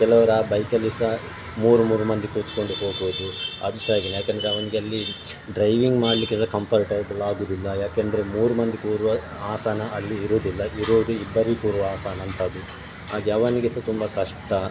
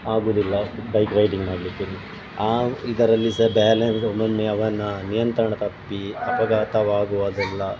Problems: constant background noise